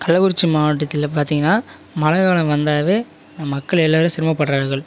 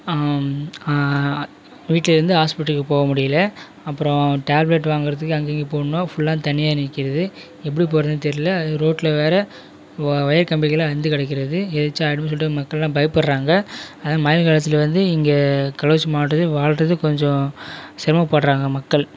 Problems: constant background noise